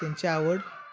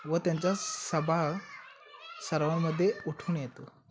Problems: constant background noise, continuous background conversations